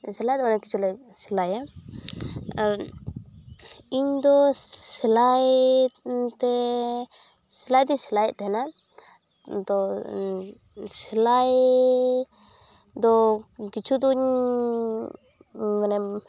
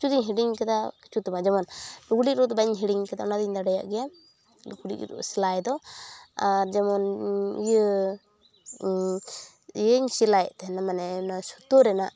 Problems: none marked